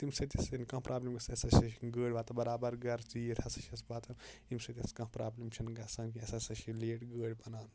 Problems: constant background noise